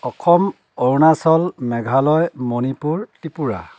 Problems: none marked